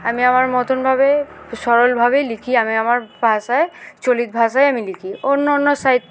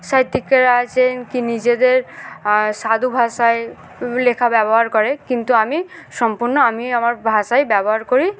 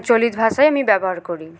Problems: constant background noise